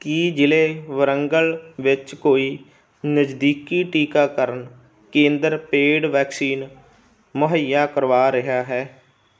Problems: background sounds at intervals